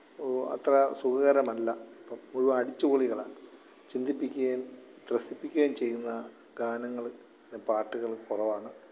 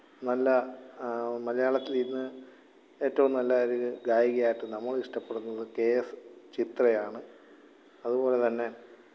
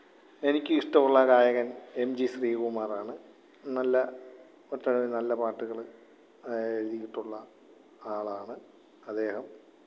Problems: background sounds at intervals, low volume